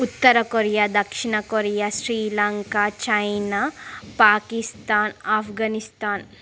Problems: constant background noise